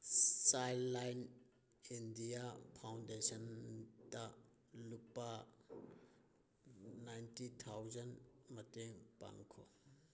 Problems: background sounds at intervals